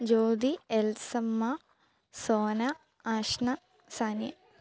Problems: none marked